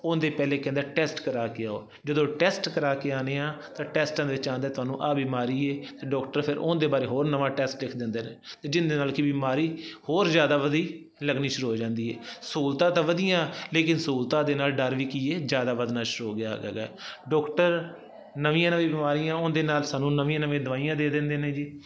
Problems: constant background noise